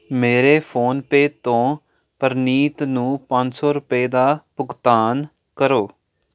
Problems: none marked